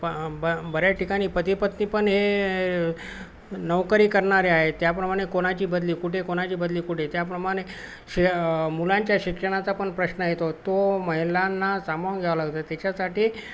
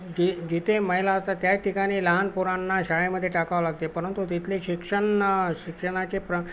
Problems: none marked